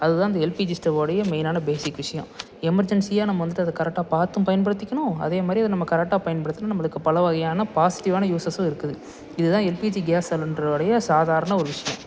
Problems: none marked